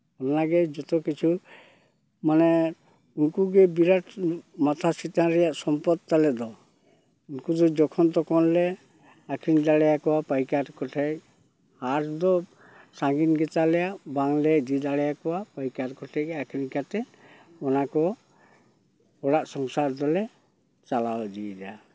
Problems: none marked